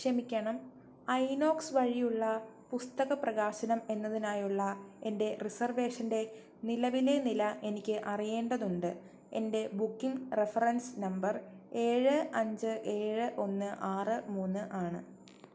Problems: none marked